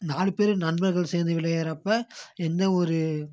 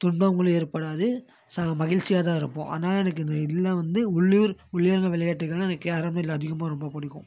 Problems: none marked